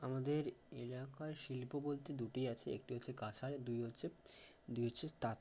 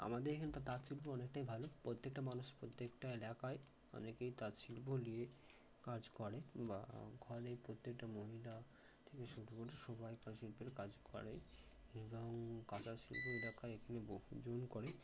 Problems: low volume